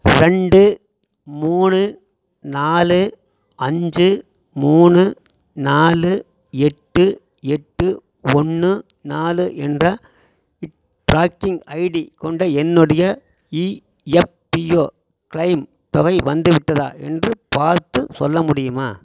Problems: constant background noise